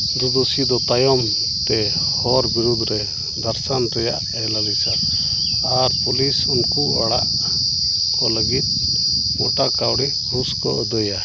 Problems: constant background noise